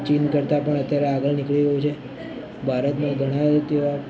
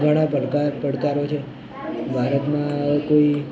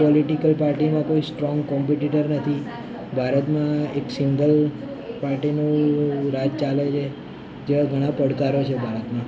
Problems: constant background noise